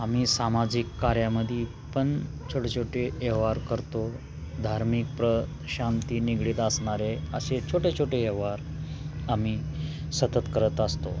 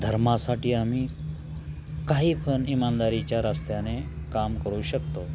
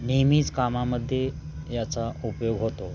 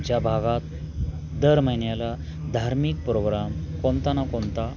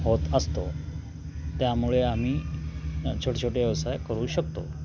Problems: constant background noise, continuous background conversations